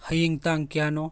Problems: none marked